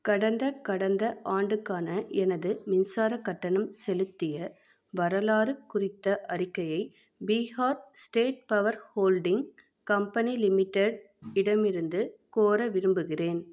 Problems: none marked